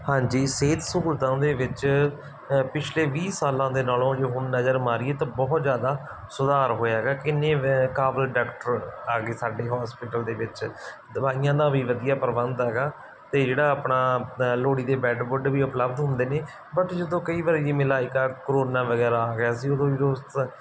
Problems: background sounds at intervals